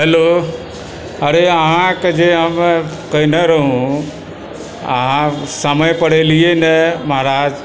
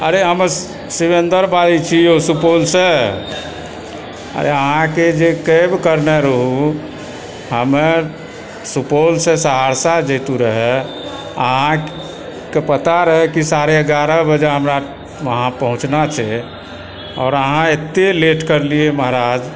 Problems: constant background noise, continuous background conversations